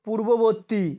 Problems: constant background noise